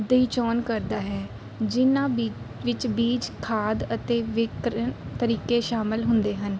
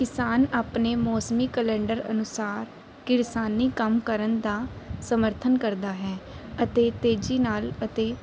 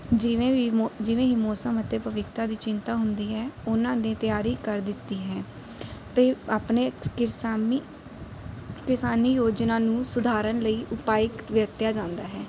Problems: none marked